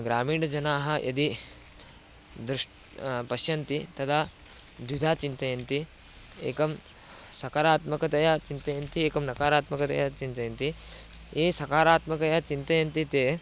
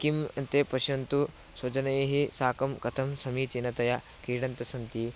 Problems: constant background noise